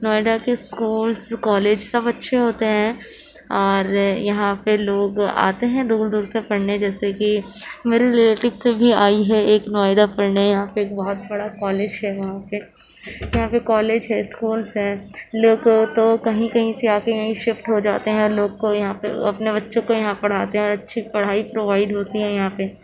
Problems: none marked